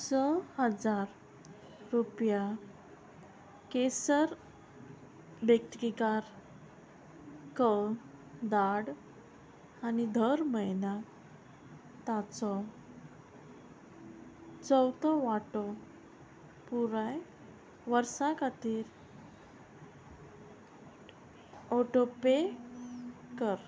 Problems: constant background noise